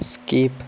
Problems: constant background noise